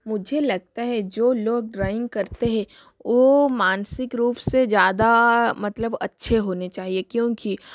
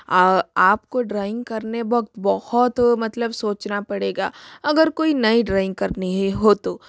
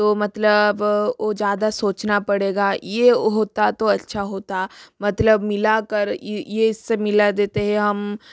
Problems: background sounds at intervals